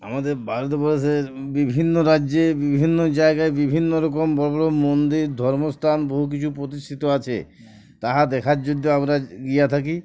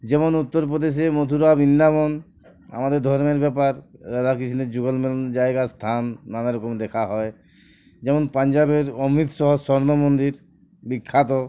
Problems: none marked